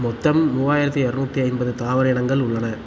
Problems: constant background noise